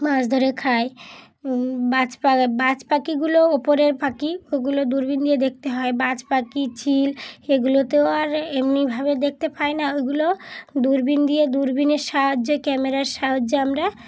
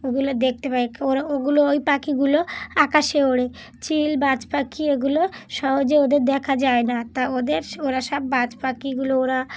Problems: background sounds at intervals